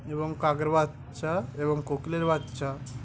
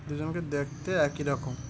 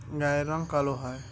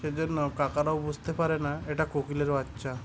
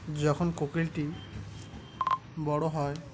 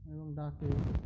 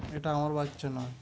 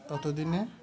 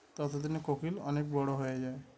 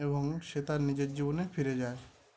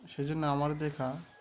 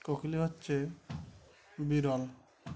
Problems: constant background noise, continuous background conversations